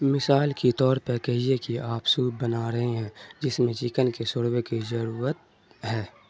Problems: constant background noise